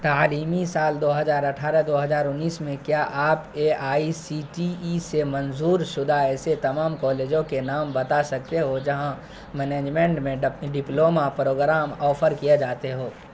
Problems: constant background noise